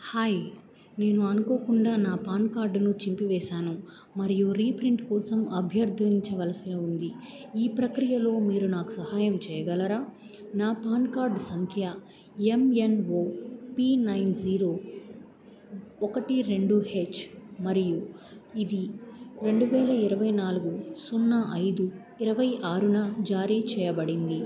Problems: background conversations at intervals